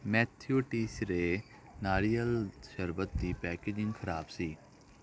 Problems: none marked